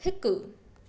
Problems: constant background noise, echo